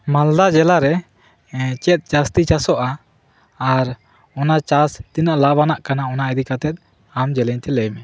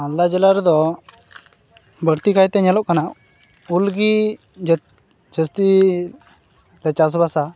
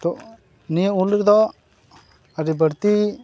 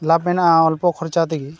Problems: background sounds at intervals